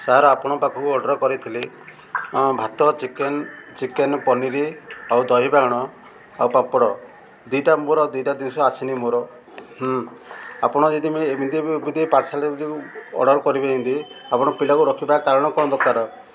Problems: constant background noise, continuous background conversations